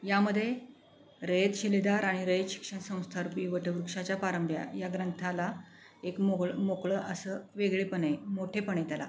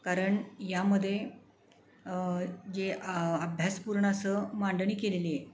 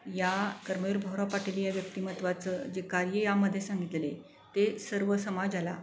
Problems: none marked